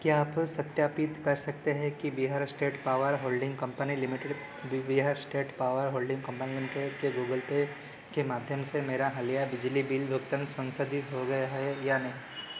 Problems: none marked